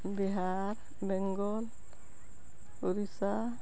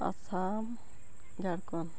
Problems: none marked